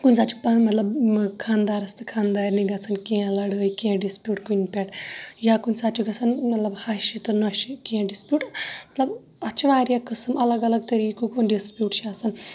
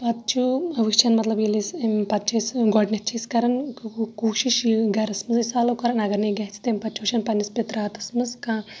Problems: background sounds at intervals, background conversations at intervals